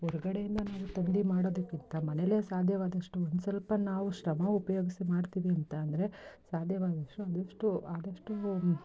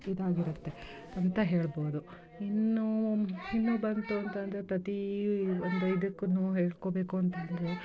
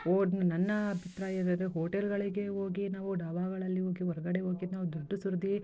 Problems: background conversations at intervals